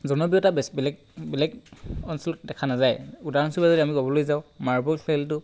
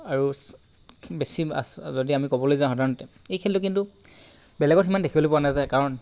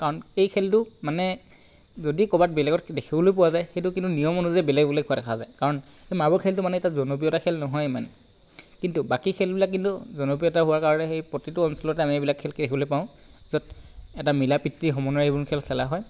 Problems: constant background noise